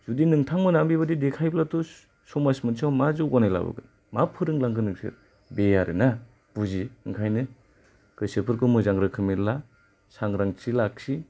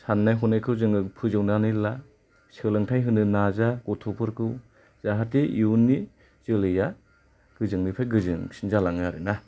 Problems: low volume